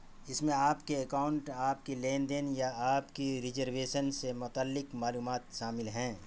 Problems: constant background noise